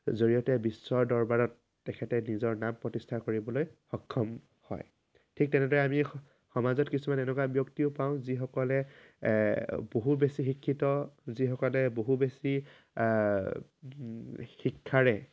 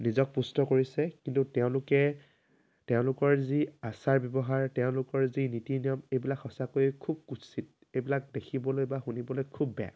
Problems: constant background noise